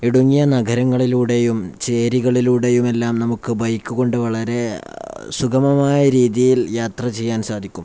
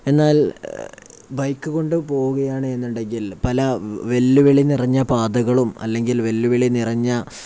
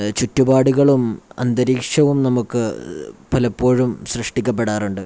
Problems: none marked